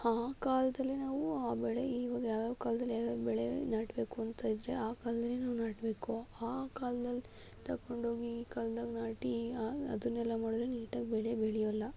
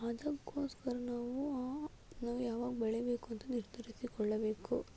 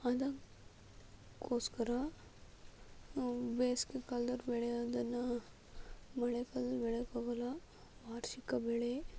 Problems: low volume